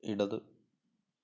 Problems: low volume